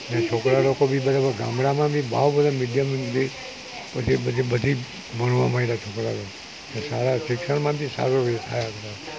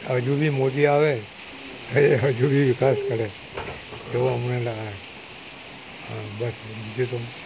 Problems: constant background noise